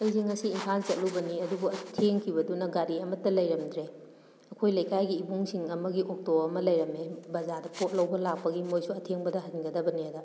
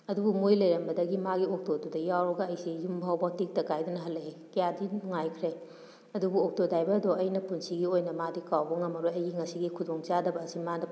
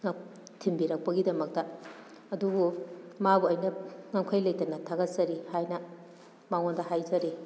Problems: none marked